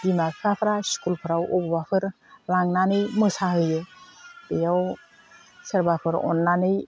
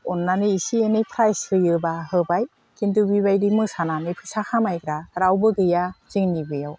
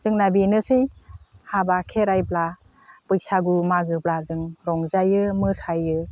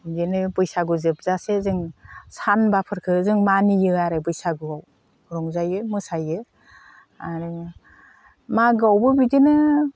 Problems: constant background noise